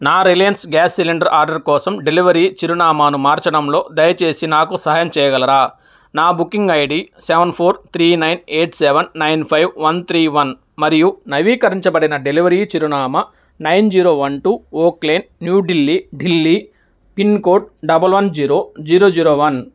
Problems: none marked